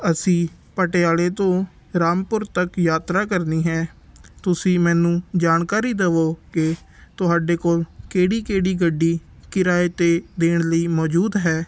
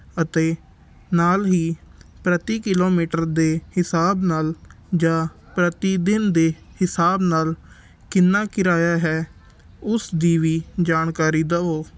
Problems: background sounds at intervals